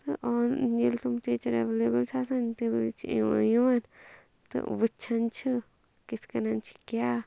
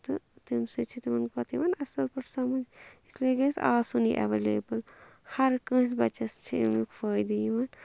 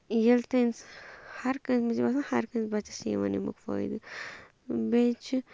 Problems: none marked